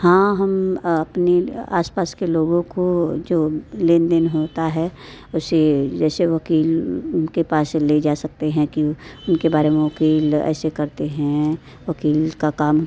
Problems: constant background noise